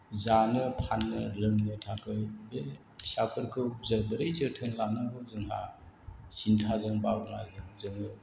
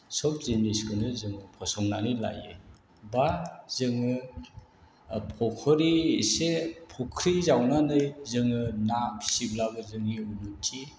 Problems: none marked